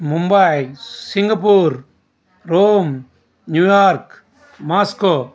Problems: constant background noise, continuous background conversations